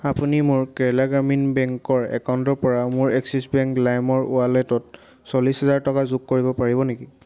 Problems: constant background noise